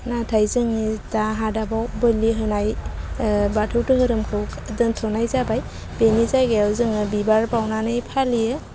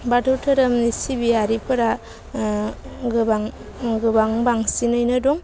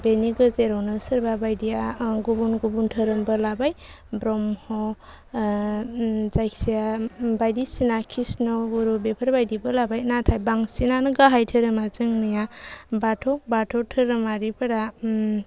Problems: constant background noise